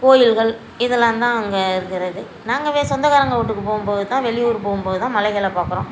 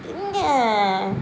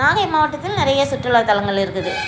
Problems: constant background noise